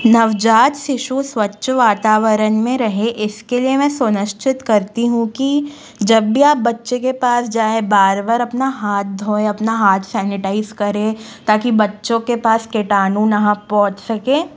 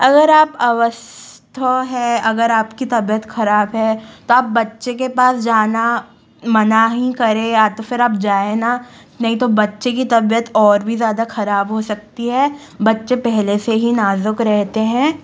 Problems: background sounds at intervals